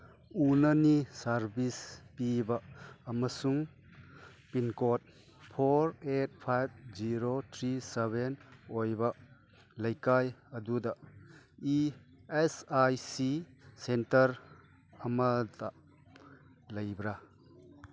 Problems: none marked